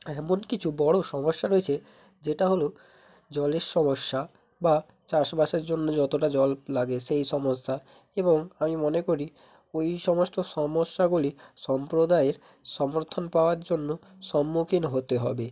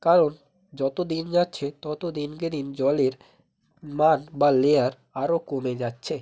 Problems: constant background noise